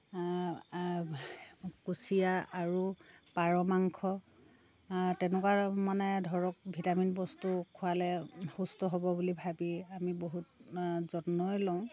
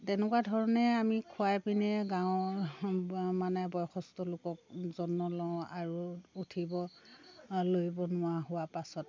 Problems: constant background noise, continuous background conversations